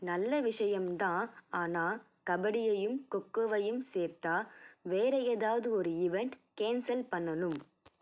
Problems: none marked